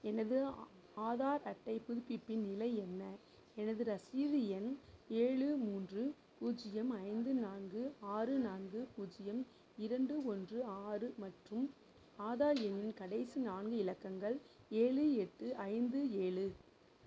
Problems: low volume